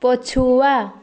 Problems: continuous background conversations